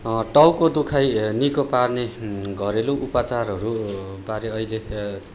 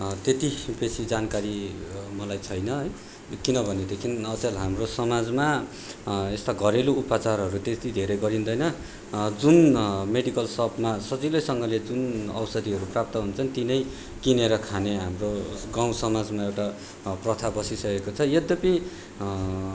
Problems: none marked